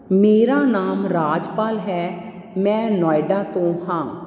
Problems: constant background noise